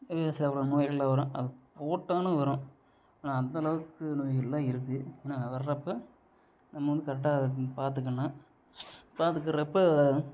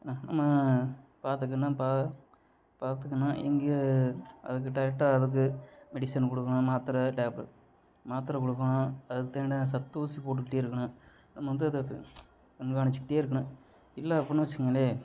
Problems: low volume